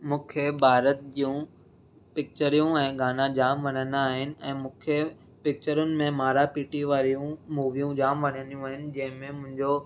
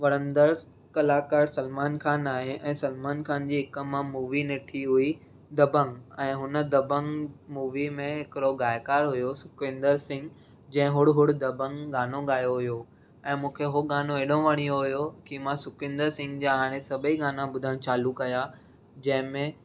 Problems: none marked